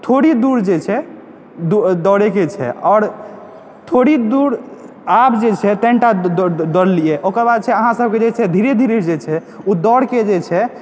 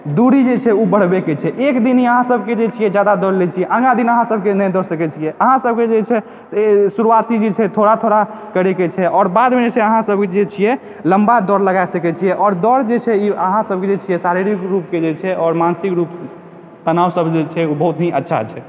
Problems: background sounds at intervals